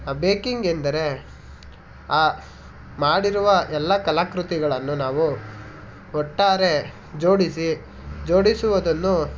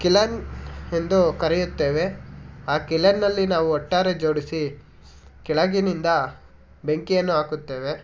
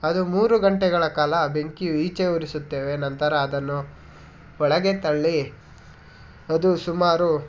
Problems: none marked